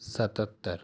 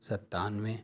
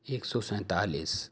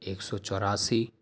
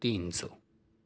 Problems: none marked